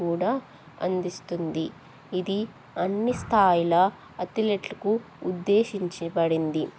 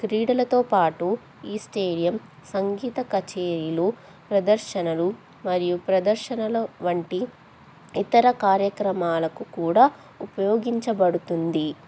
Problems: none marked